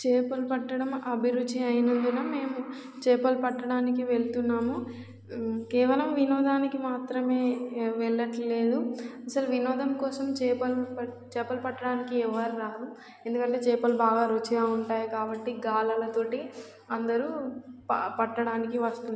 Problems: background sounds at intervals